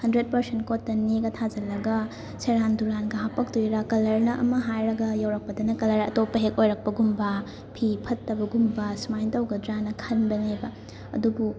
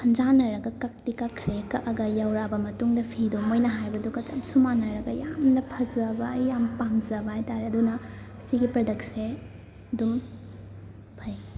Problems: constant background noise, continuous background conversations